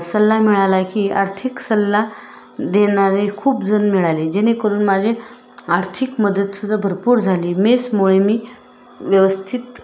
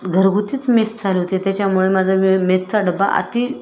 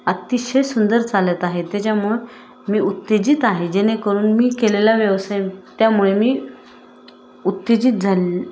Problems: constant background noise